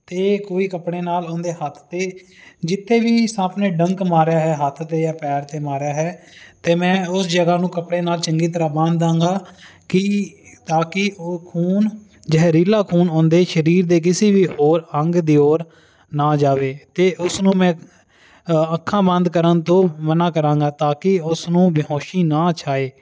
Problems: background sounds at intervals